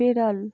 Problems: none marked